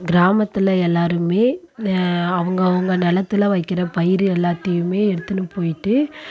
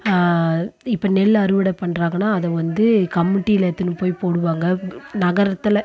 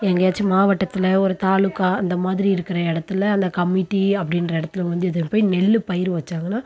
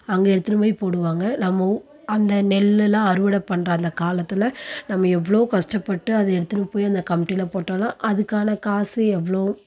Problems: none marked